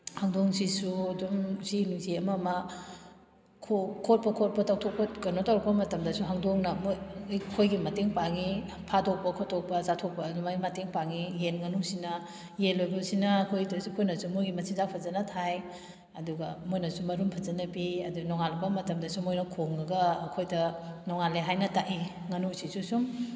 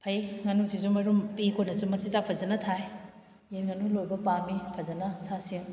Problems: background sounds at intervals